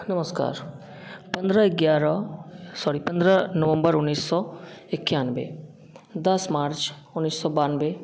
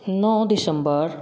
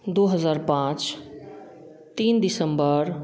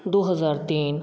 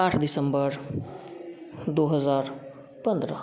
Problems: none marked